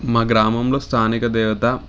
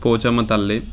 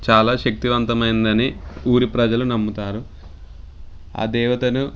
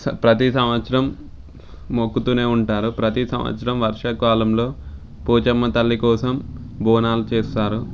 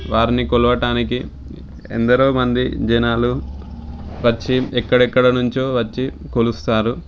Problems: background sounds at intervals